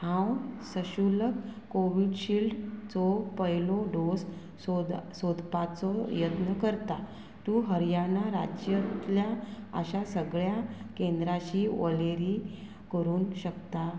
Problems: constant background noise